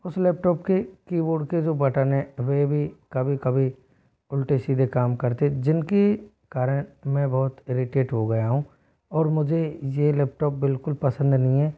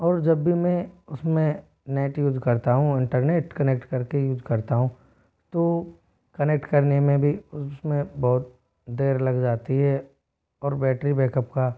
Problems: background sounds at intervals